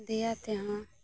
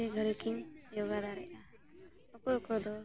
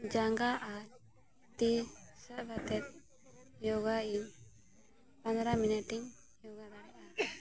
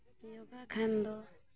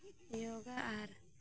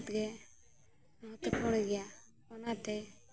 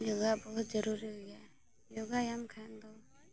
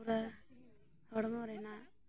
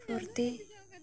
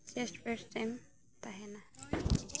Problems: background sounds at intervals, continuous background conversations, low volume